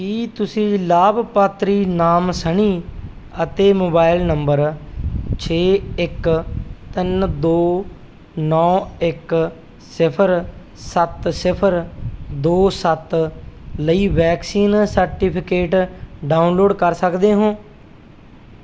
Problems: none marked